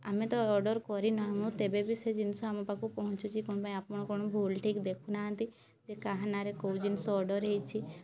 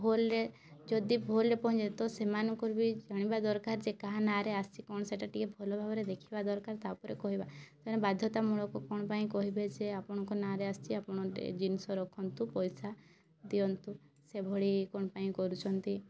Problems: low volume